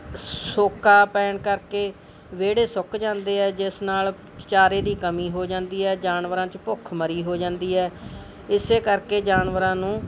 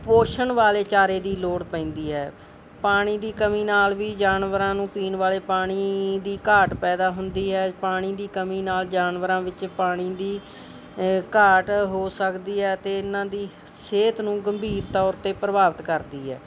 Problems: background sounds at intervals